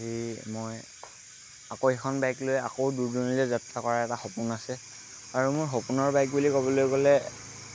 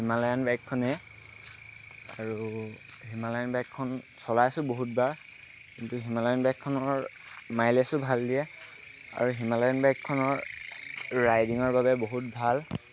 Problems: constant background noise